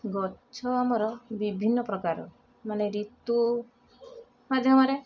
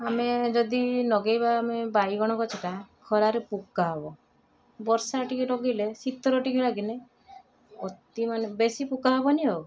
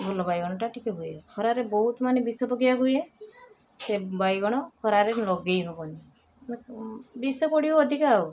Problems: constant background noise, continuous background conversations